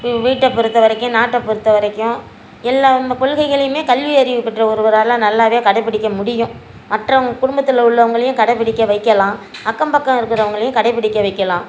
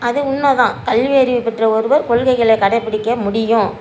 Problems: constant background noise